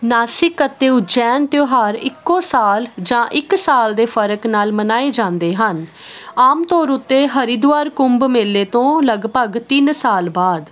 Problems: constant background noise